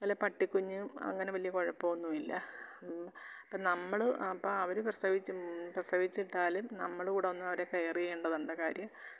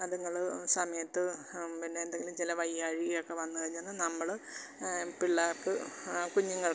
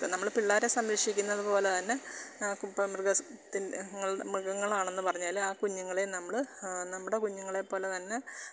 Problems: constant background noise, low volume